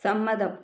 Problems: low volume